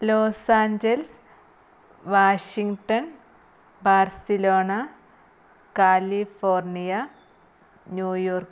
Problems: none marked